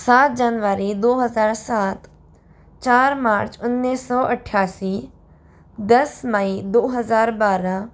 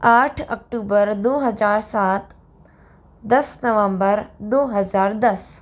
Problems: none marked